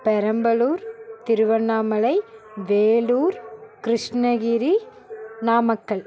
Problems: continuous background conversations